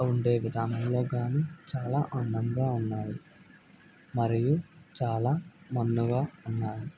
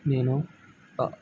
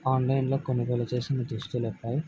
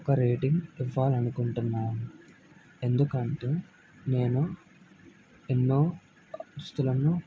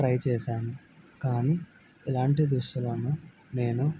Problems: none marked